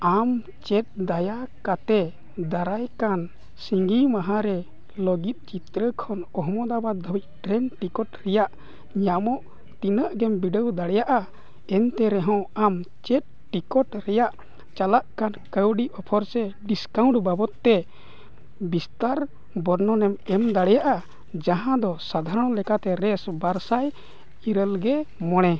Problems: none marked